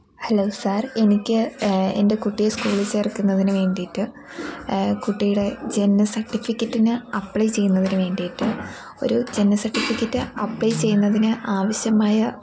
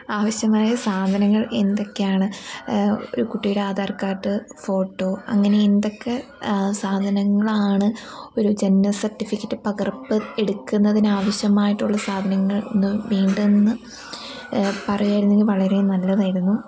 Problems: constant background noise